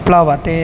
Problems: constant background noise